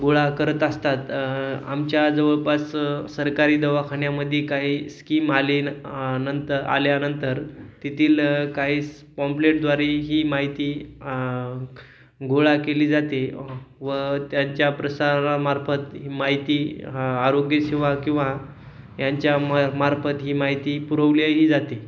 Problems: none marked